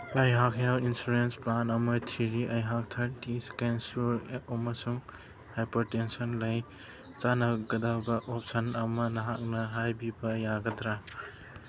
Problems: background sounds at intervals